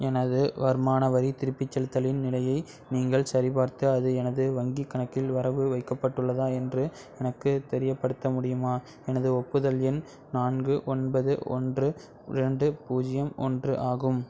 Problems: background sounds at intervals